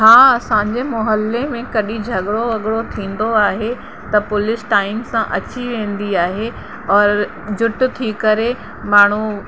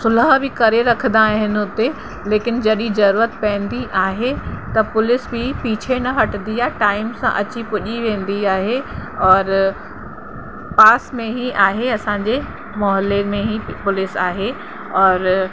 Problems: constant background noise